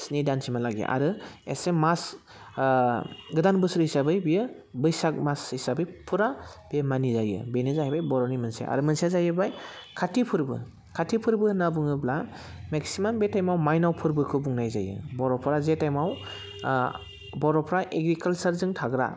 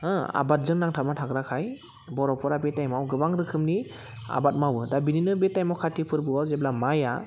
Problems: constant background noise